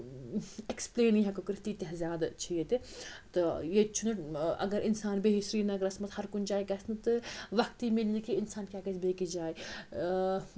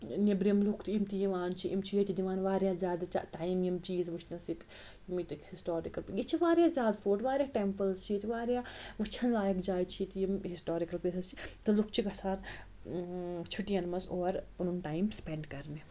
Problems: constant background noise